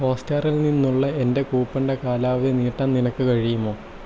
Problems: constant background noise, low volume